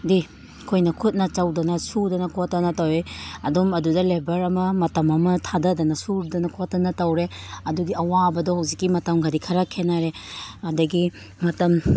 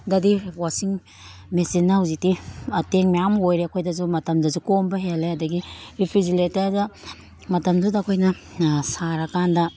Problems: background sounds at intervals